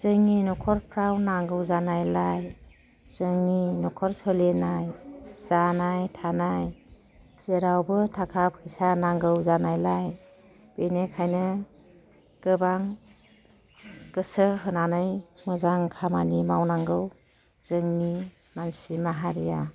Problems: constant background noise